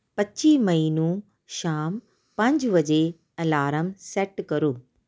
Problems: none marked